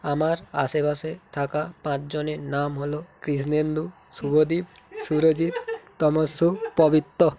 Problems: continuous background conversations